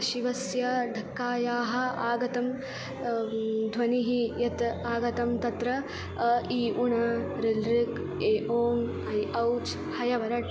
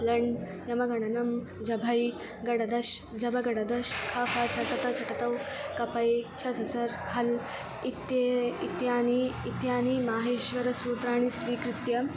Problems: constant background noise